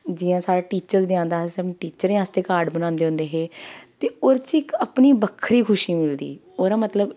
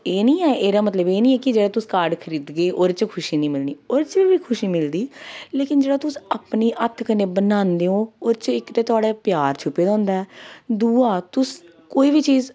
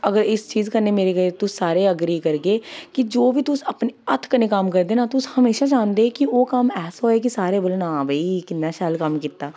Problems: none marked